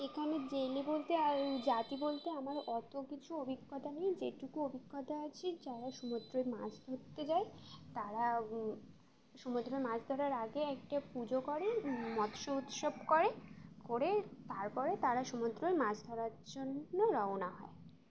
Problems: constant background noise